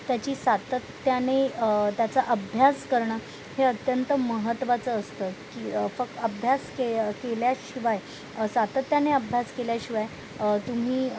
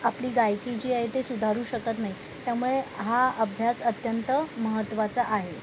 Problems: constant background noise, background conversations at intervals